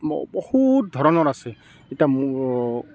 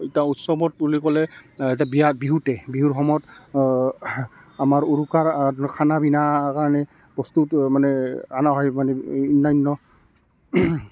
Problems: constant background noise, continuous background conversations